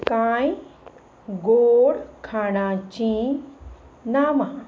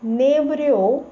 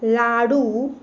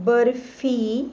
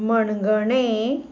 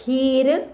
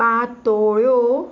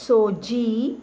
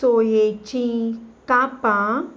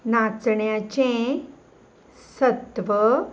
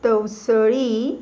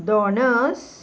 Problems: none marked